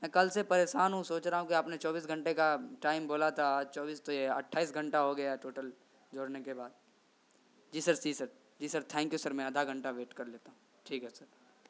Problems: constant background noise